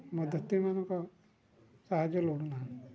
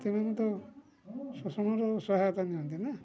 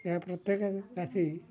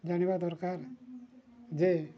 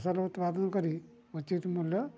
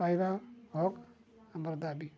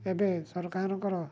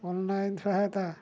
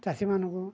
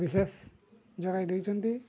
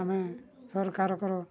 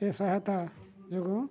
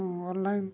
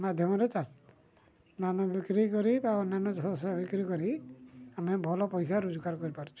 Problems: low volume